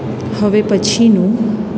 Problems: none marked